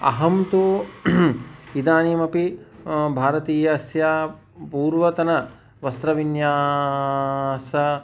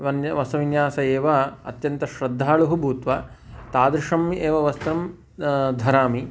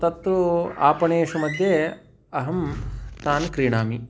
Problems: constant background noise